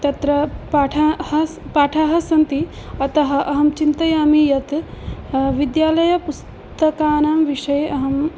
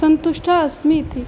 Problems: background conversations at intervals